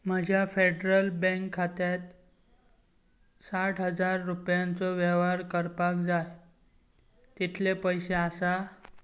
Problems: none marked